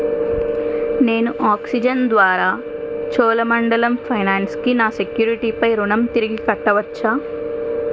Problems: constant background noise